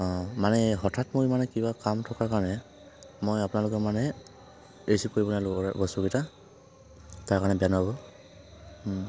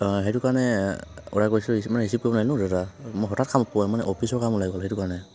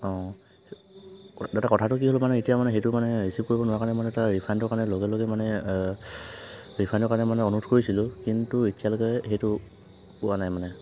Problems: background sounds at intervals